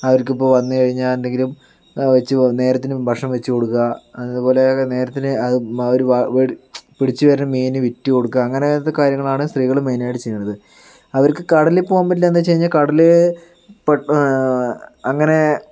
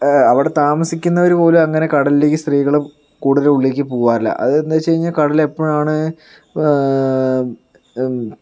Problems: none marked